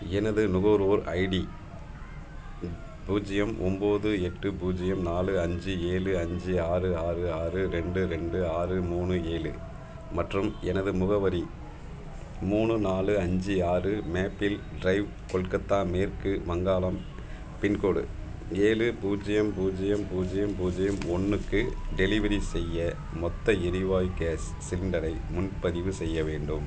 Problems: constant background noise